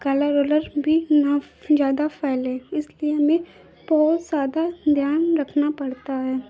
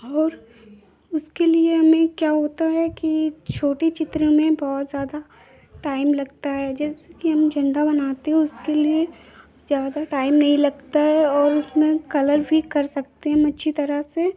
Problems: constant background noise